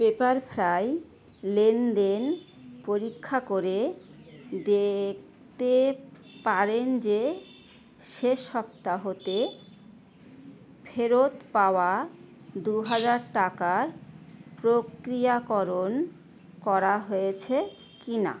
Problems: constant background noise